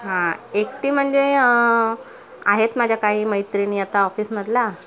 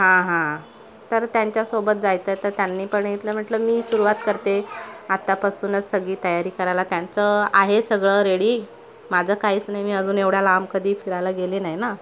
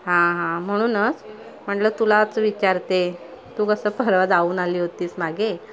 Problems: constant background noise, continuous background conversations